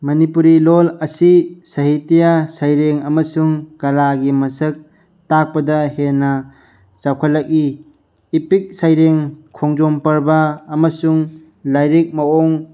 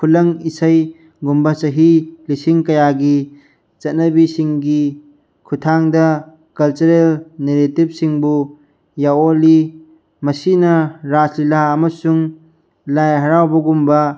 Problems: none marked